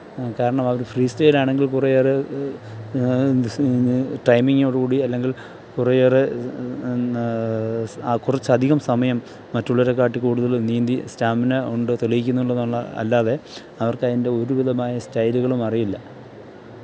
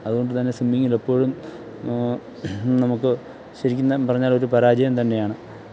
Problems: background sounds at intervals, low volume